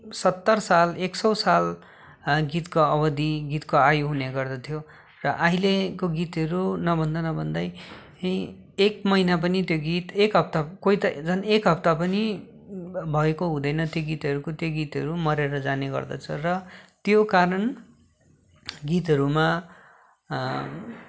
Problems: none marked